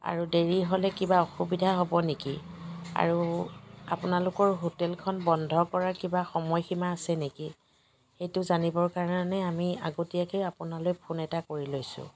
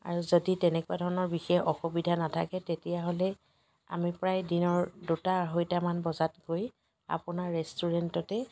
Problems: constant background noise, background conversations at intervals